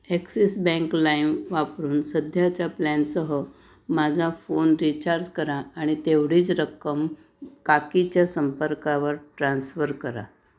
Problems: none marked